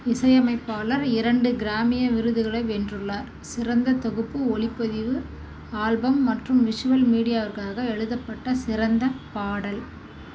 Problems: none marked